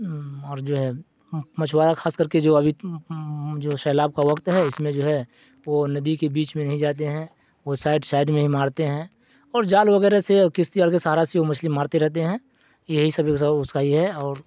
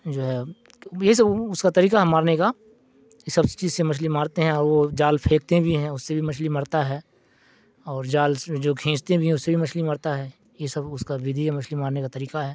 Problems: none marked